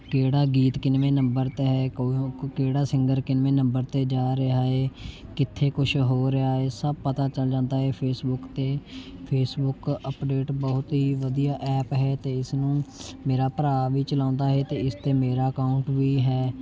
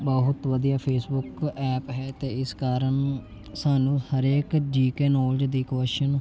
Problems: none marked